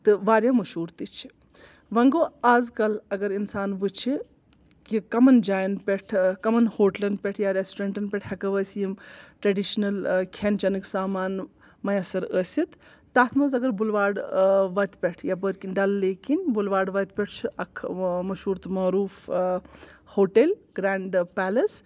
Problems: none marked